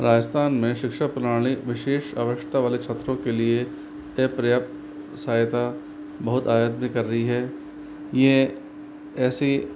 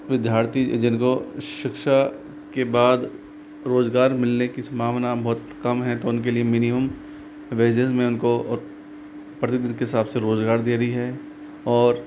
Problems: constant background noise